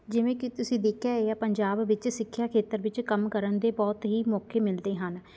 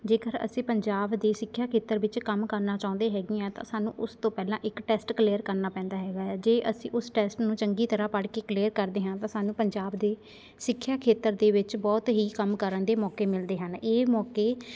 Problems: constant background noise, continuous background conversations